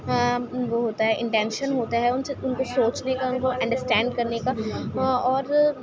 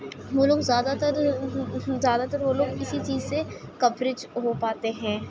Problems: constant background noise